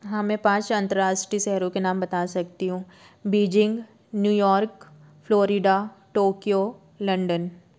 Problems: none marked